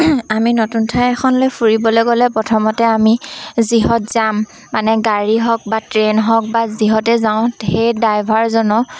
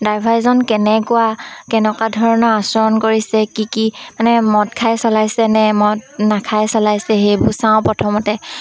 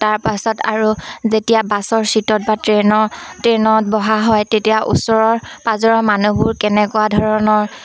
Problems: constant background noise, background conversations at intervals